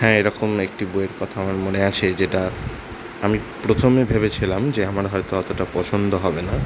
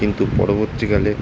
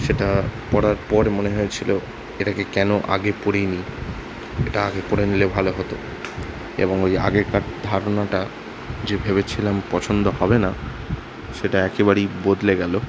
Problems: constant background noise